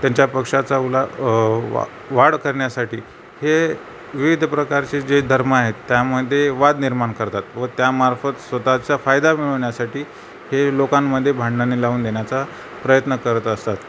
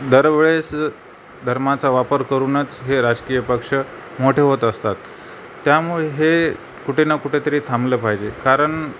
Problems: none marked